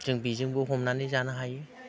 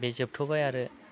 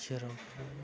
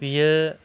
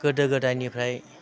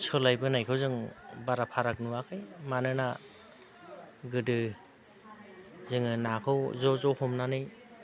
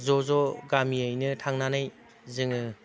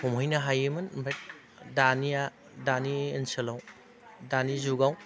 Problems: constant background noise